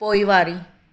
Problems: none marked